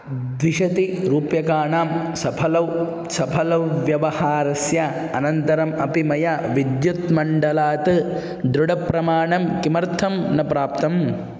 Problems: constant background noise